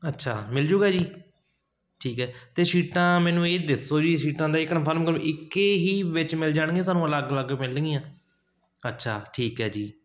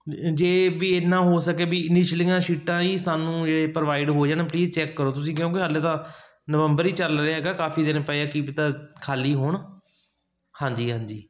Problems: constant background noise